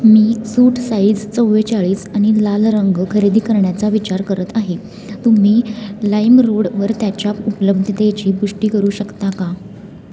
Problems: constant background noise, continuous background conversations